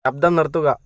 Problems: none marked